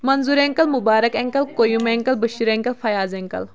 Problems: constant background noise